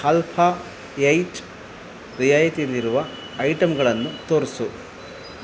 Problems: constant background noise